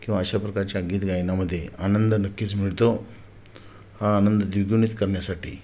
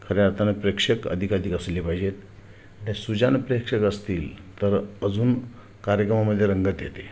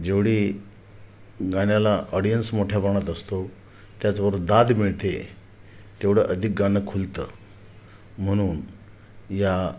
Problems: none marked